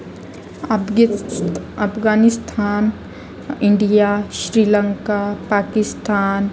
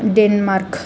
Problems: constant background noise, continuous background conversations